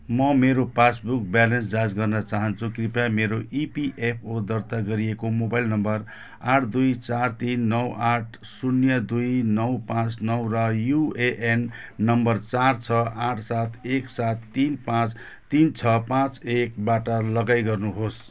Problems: background sounds at intervals